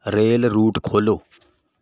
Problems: background sounds at intervals